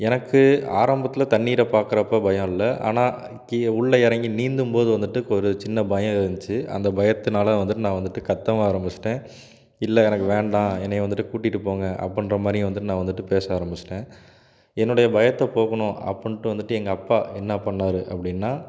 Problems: none marked